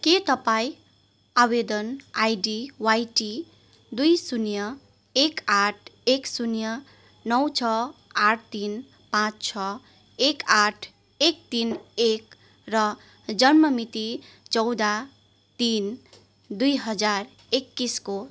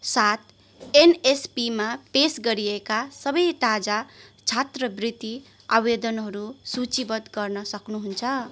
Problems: constant background noise